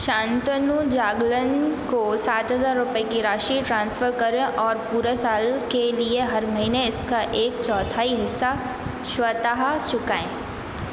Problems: none marked